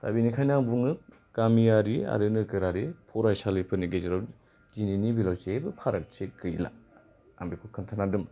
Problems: none marked